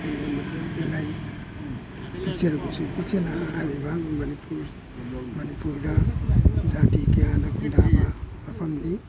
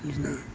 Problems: background sounds at intervals